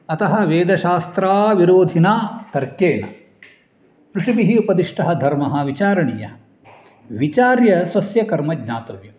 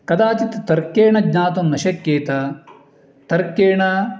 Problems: background sounds at intervals